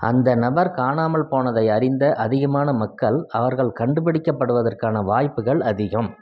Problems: none marked